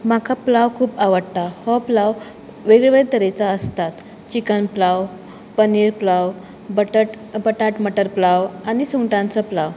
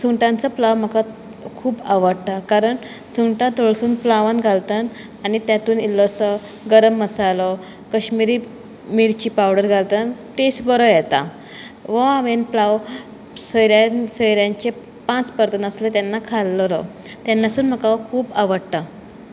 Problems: background sounds at intervals